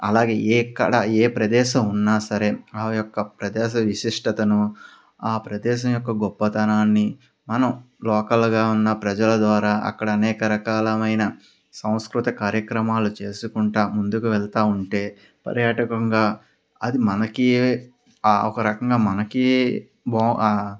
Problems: none marked